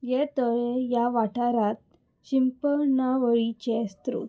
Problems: none marked